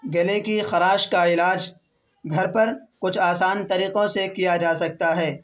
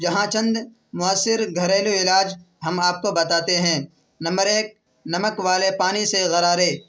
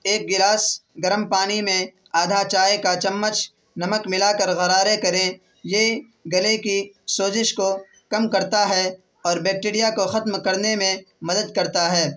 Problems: constant background noise